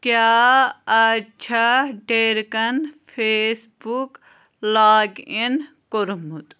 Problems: constant background noise